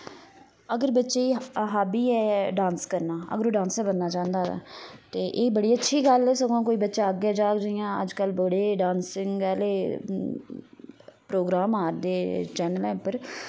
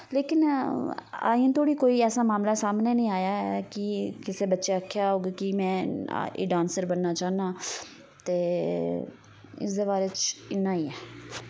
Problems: none marked